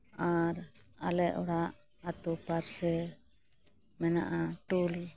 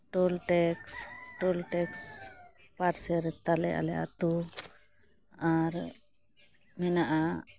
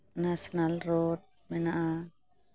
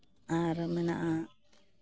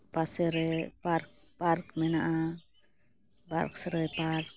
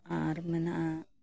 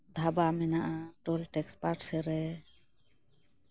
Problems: constant background noise